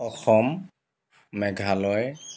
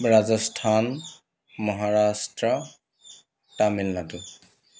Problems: constant background noise